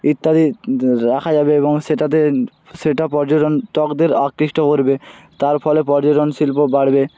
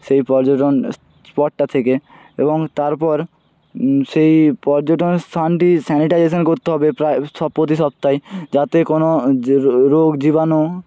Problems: background sounds at intervals